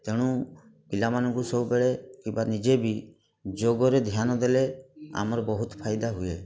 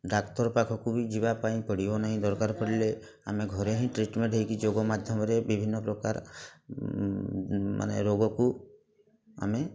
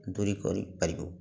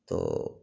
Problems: constant background noise, continuous background conversations